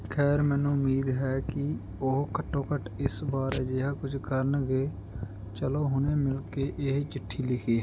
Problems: background sounds at intervals